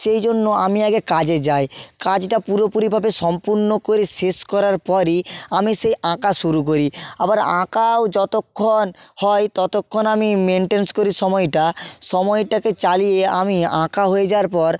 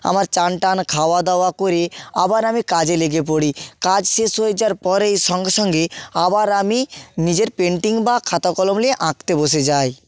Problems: none marked